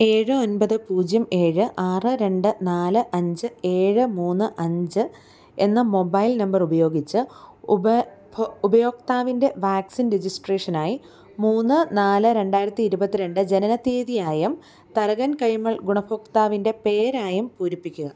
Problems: none marked